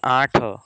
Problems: constant background noise